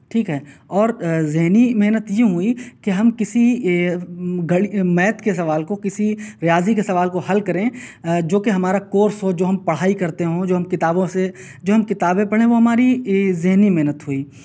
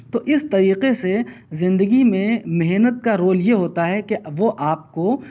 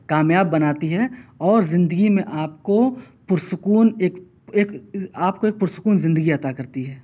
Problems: none marked